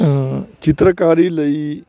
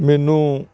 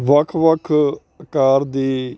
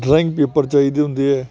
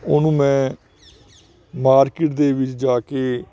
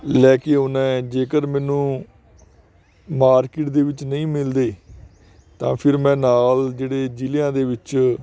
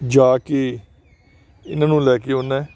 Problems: continuous background conversations